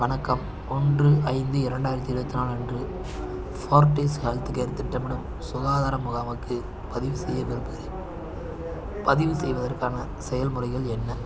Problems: constant background noise